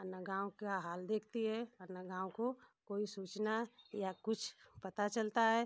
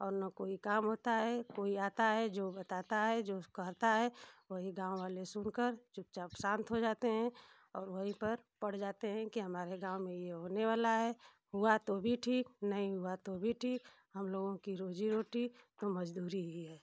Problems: constant background noise